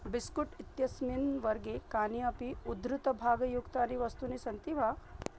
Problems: low volume